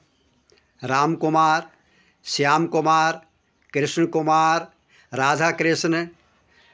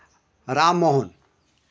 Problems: constant background noise